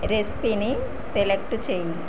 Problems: background sounds at intervals